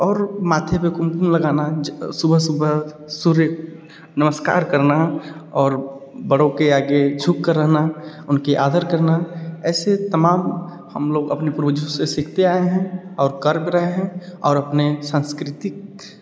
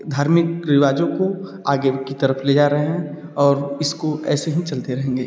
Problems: echo